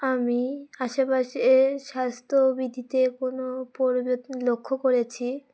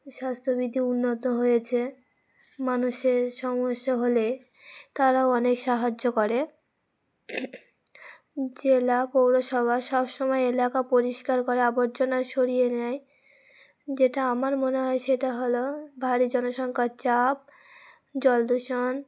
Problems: none marked